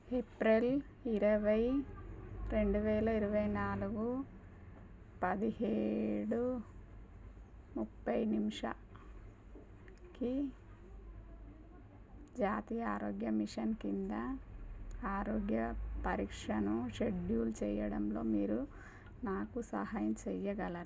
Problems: low volume